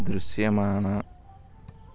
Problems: constant background noise